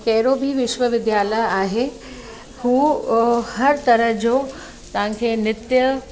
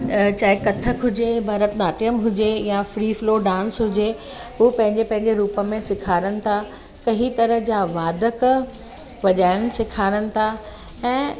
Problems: constant background noise, echo